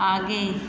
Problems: constant background noise